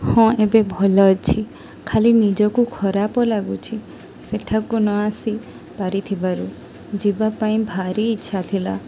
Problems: constant background noise